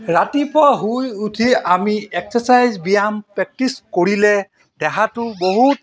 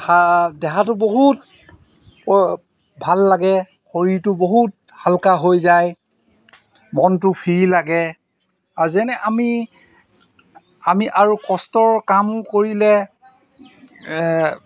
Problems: background sounds at intervals